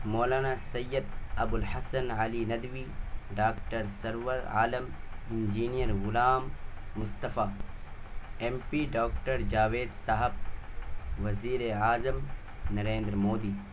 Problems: constant background noise